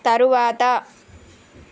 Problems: none marked